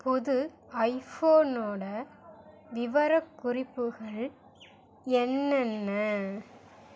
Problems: none marked